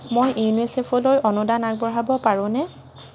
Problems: constant background noise